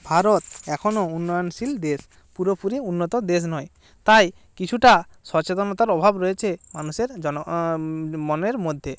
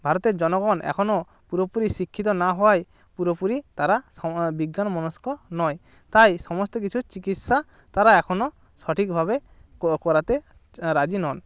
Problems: none marked